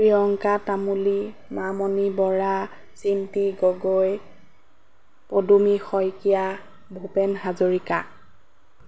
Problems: none marked